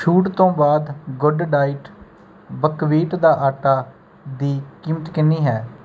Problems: none marked